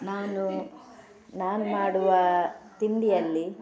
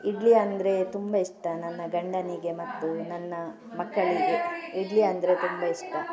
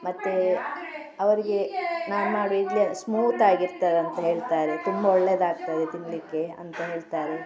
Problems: none marked